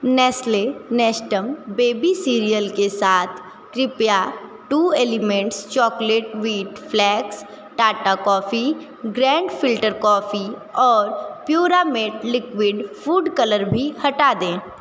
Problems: constant background noise